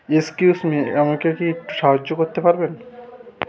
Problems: background sounds at intervals, continuous background conversations